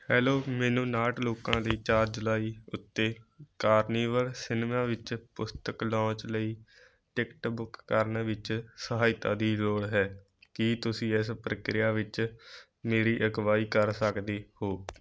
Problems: none marked